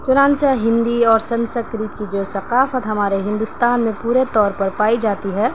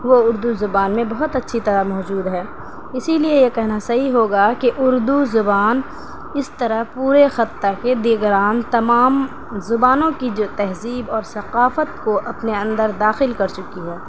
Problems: constant background noise